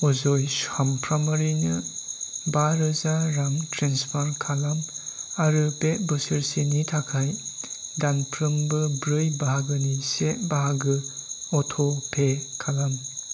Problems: constant background noise